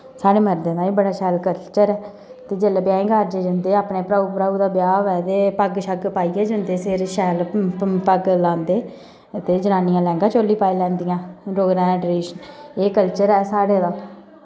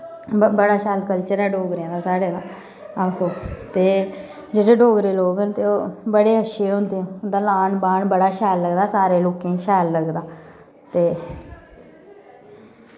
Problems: background sounds at intervals